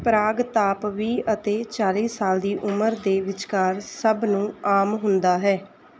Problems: none marked